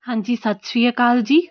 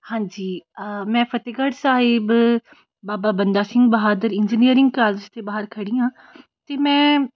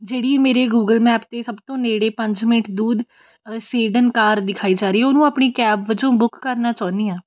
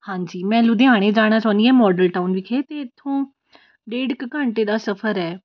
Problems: constant background noise